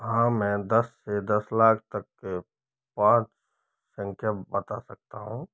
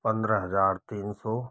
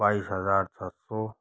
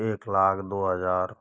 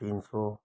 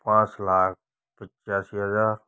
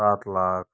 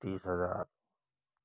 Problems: low volume